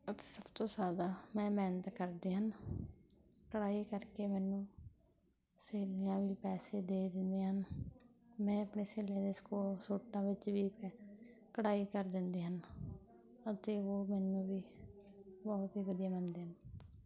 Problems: background conversations at intervals